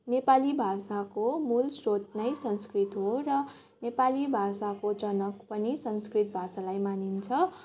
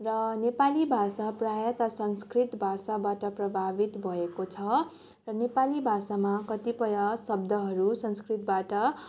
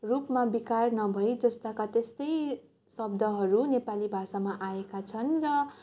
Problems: continuous background conversations